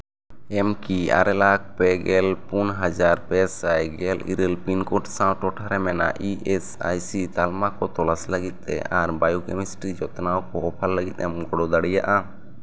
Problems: none marked